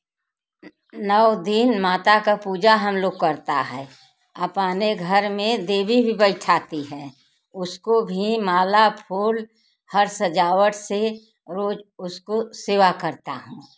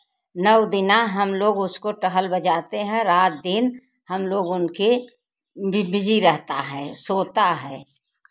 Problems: background sounds at intervals